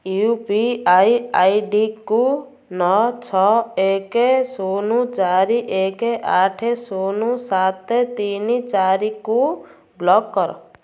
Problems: none marked